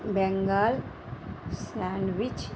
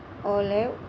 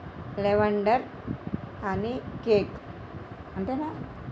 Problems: constant background noise